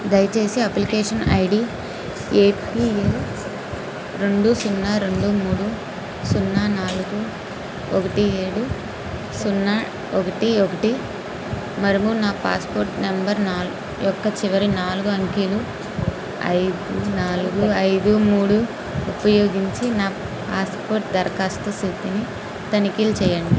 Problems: constant background noise